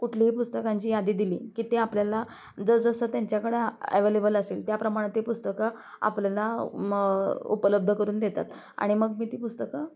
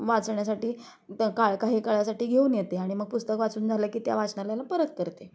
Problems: constant background noise, continuous background conversations